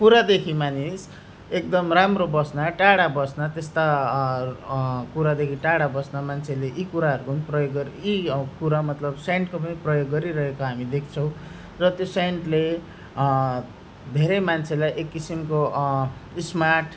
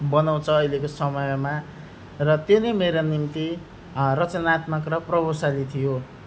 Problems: none marked